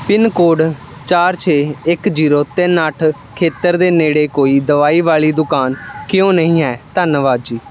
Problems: constant background noise